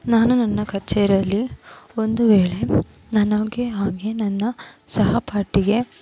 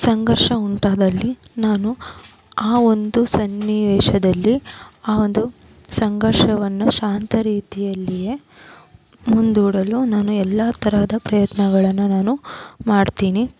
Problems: constant background noise, background conversations at intervals